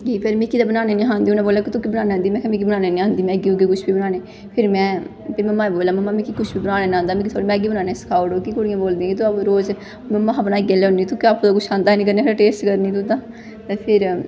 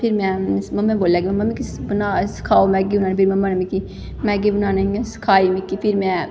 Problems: constant background noise, echo